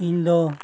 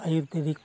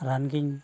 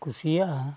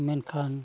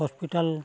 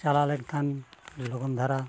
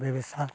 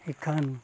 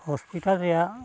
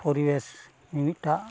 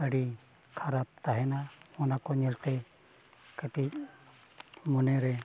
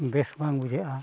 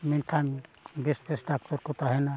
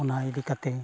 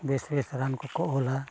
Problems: background sounds at intervals